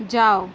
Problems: constant background noise